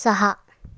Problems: none marked